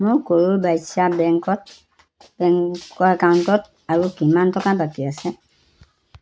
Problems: constant background noise